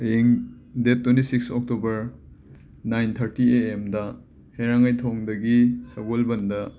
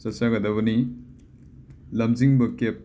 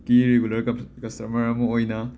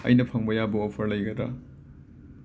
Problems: background sounds at intervals